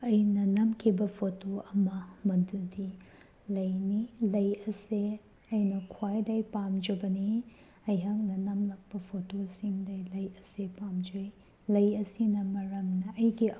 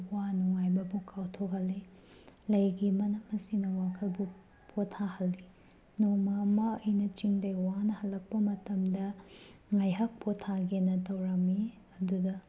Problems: background sounds at intervals